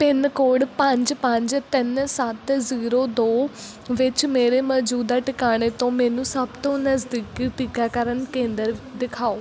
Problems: background sounds at intervals